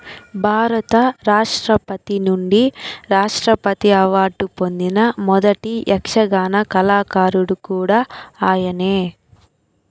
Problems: background conversations at intervals